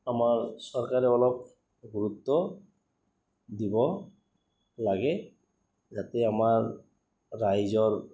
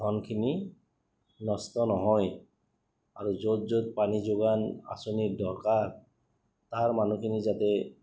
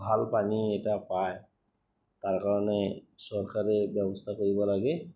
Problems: none marked